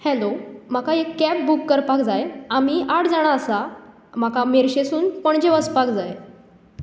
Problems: constant background noise